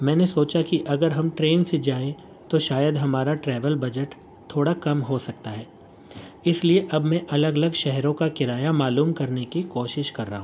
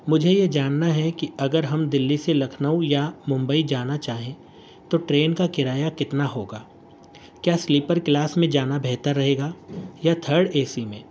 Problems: constant background noise